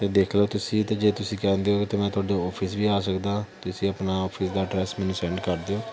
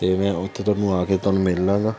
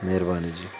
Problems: constant background noise